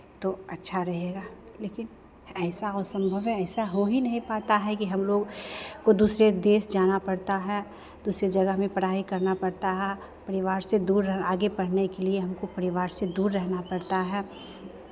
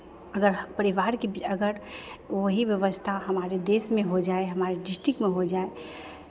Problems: background sounds at intervals, background conversations at intervals